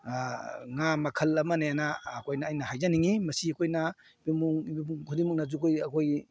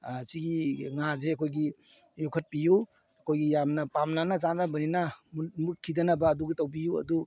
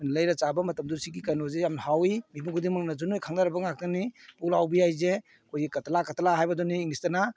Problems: none marked